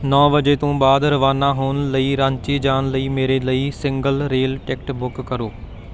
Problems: constant background noise